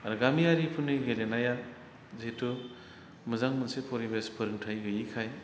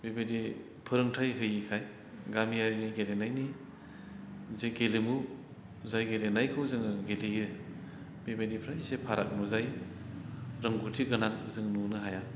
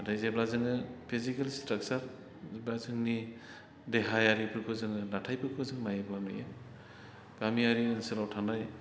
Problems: none marked